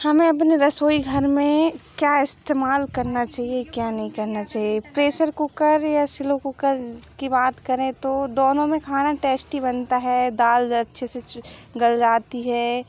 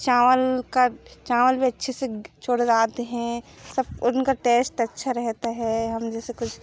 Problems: background sounds at intervals